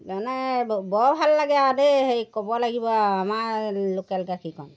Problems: background sounds at intervals